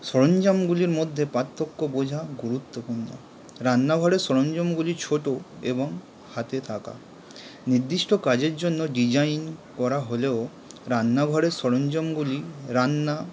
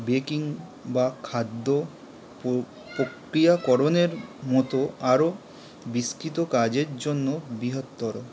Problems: constant background noise